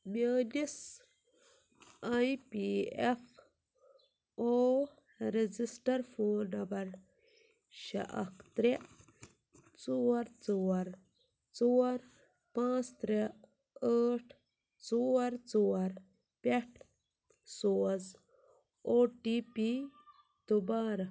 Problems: none marked